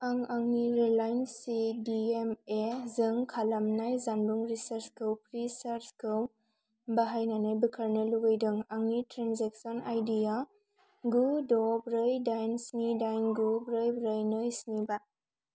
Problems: constant background noise